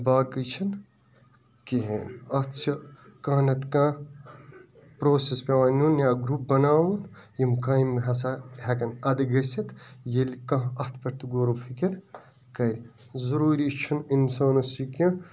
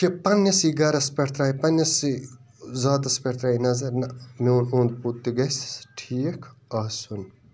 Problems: background sounds at intervals, continuous background conversations